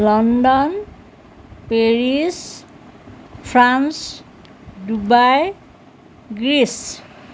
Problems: background sounds at intervals